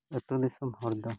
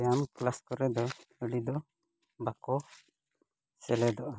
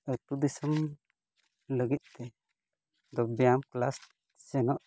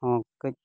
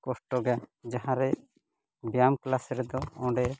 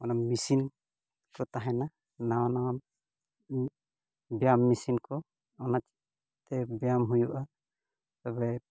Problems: none marked